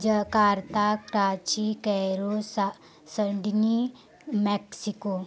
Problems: none marked